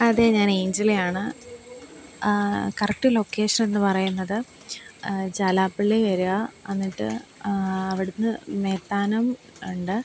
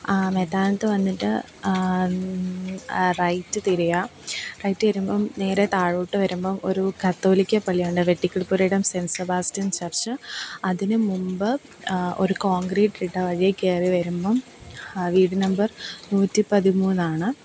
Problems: constant background noise